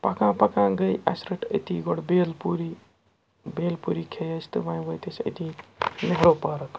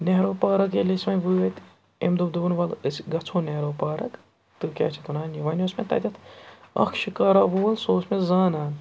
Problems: background sounds at intervals